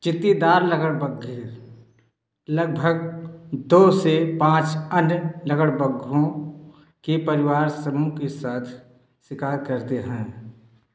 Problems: echo